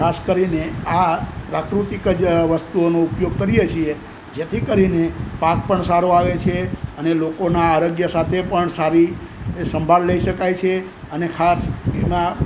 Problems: none marked